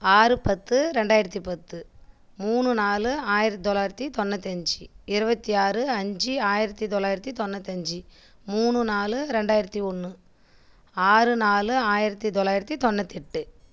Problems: none marked